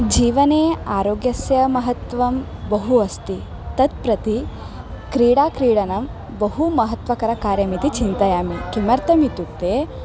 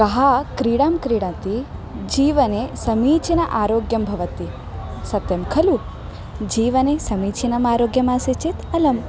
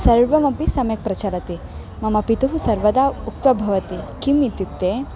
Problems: constant background noise